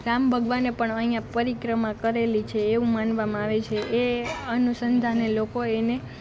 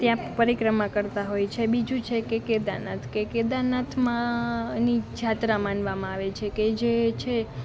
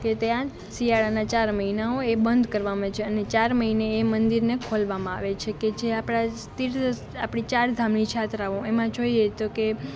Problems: constant background noise